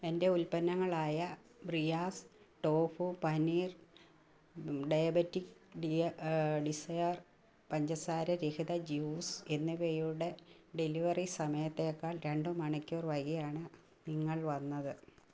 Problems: low volume